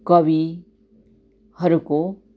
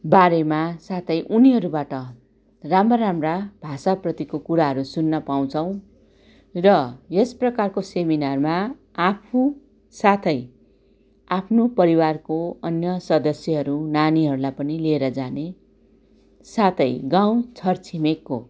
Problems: none marked